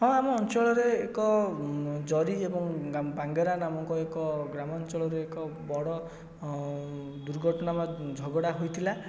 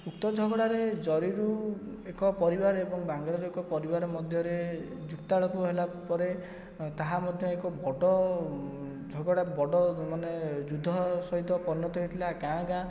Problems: background sounds at intervals, low volume